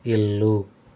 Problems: constant background noise